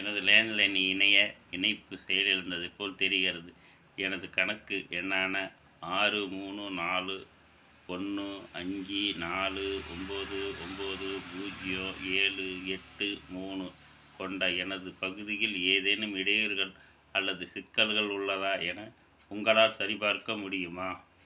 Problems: background sounds at intervals